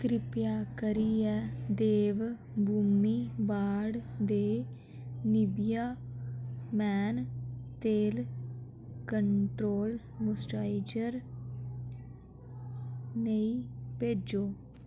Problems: echo